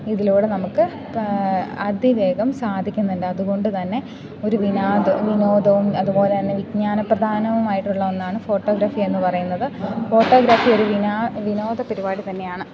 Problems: background sounds at intervals